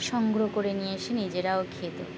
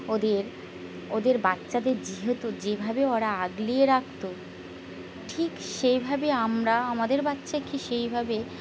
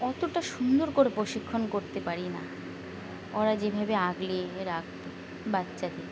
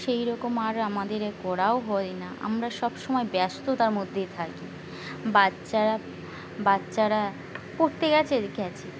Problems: constant background noise, background conversations at intervals